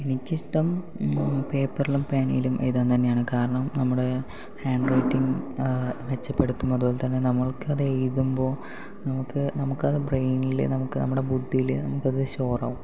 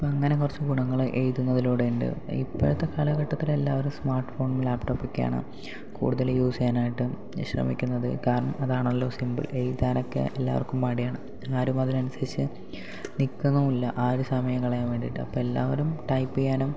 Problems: low volume